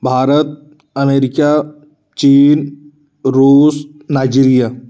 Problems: constant background noise